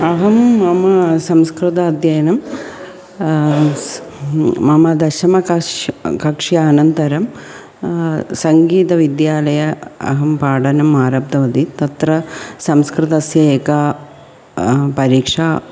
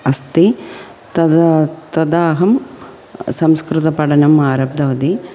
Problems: background sounds at intervals